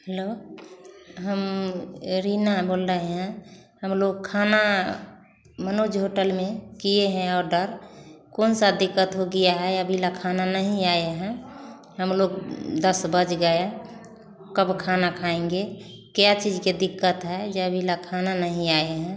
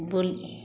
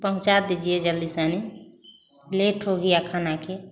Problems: constant background noise